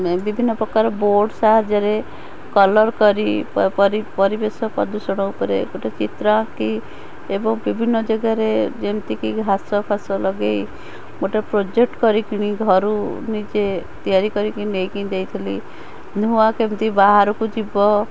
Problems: constant background noise